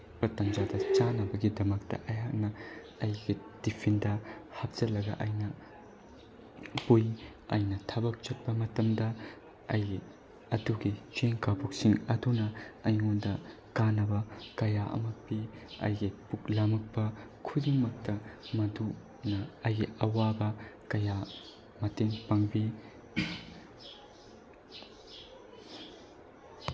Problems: constant background noise, low volume